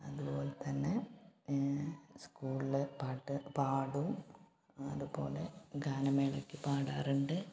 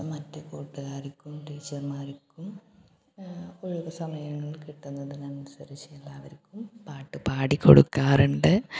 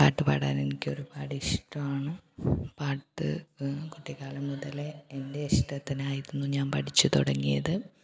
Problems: low volume